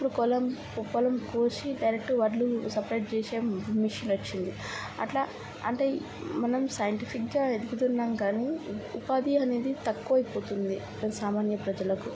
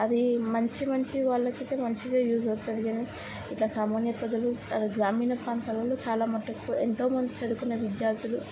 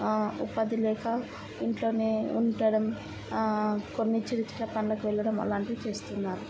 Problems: constant background noise, background conversations at intervals, low volume